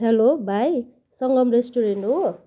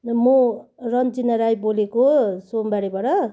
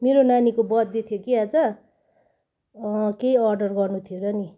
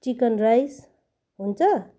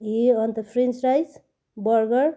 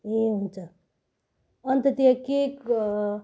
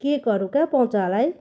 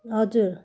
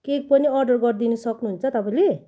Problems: none marked